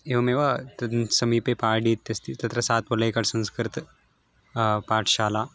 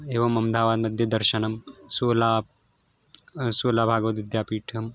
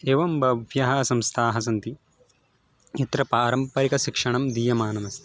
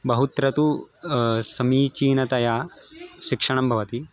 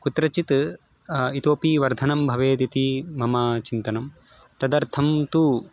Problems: background sounds at intervals